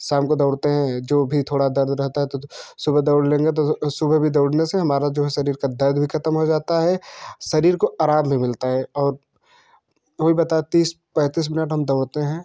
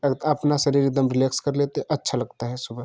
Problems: none marked